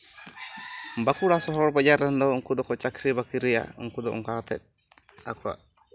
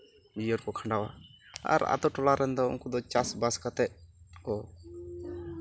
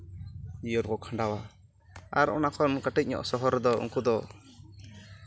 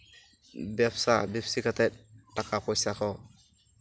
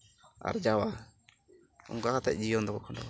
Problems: background sounds at intervals